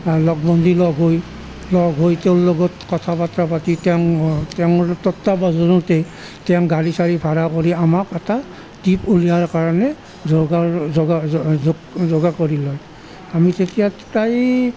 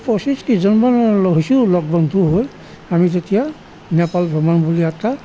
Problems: none marked